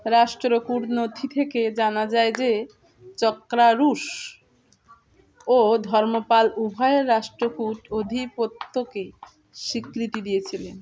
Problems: constant background noise, continuous background conversations